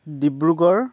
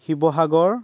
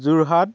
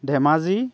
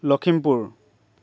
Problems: none marked